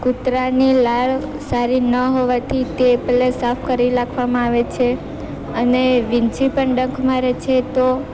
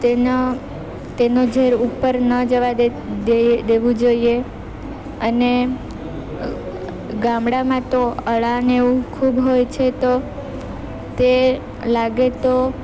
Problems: constant background noise